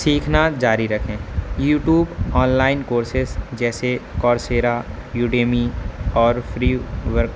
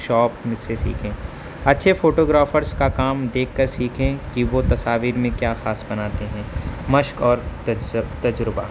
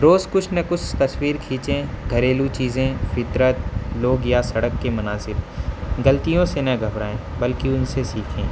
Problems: constant background noise